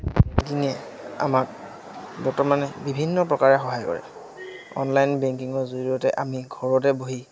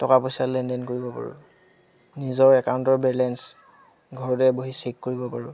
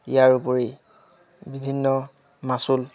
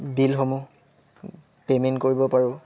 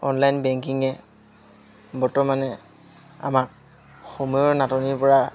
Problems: constant background noise, background conversations at intervals